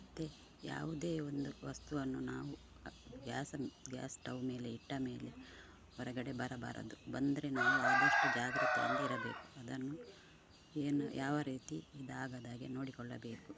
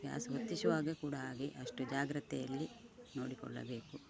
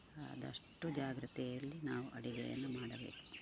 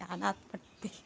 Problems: constant background noise